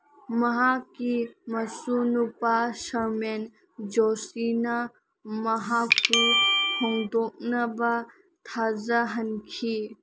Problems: none marked